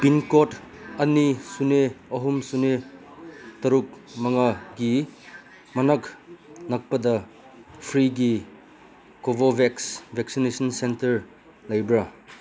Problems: constant background noise